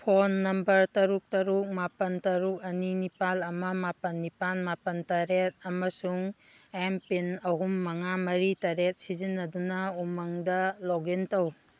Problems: background sounds at intervals